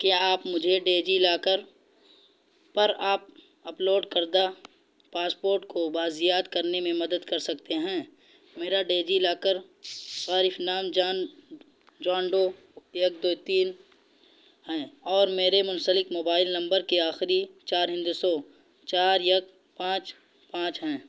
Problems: constant background noise